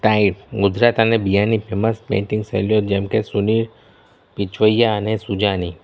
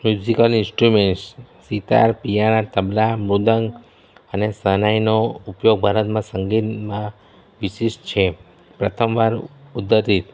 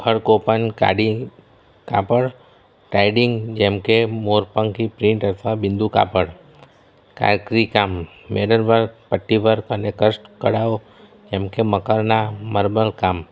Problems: none marked